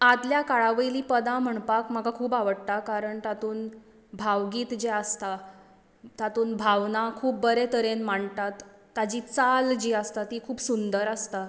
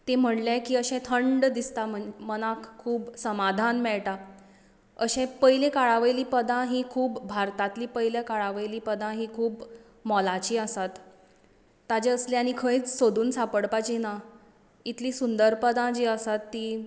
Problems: background sounds at intervals, echo